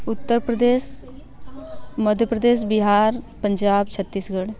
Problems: constant background noise, background conversations at intervals